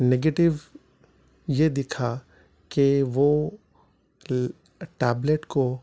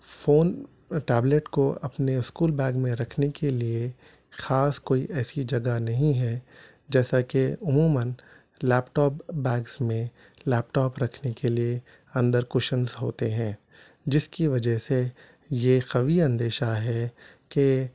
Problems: none marked